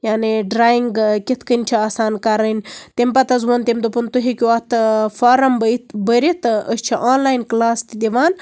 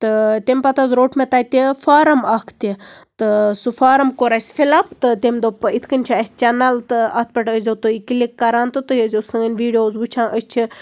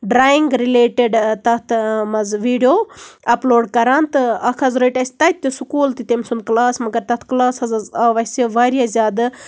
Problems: background sounds at intervals